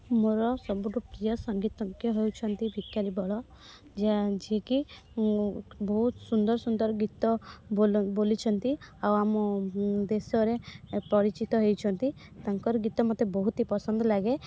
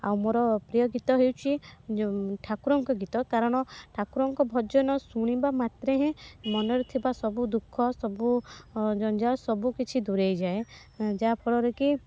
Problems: background sounds at intervals, low volume